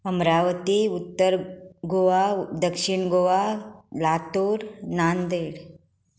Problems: constant background noise